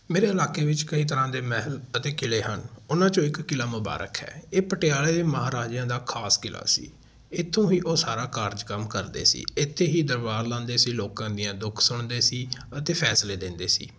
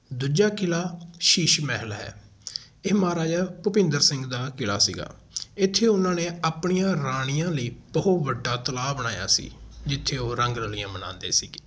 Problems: none marked